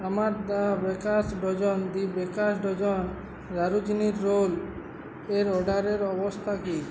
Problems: none marked